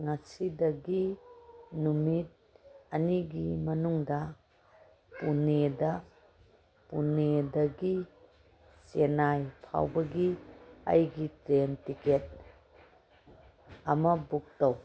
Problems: background sounds at intervals